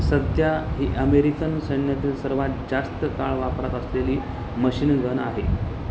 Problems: constant background noise, background conversations at intervals